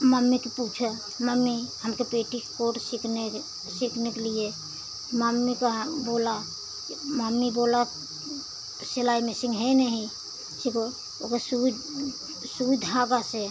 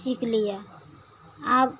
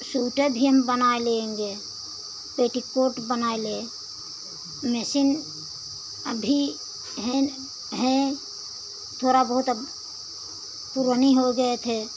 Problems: constant background noise